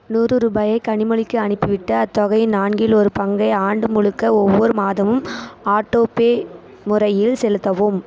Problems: continuous background conversations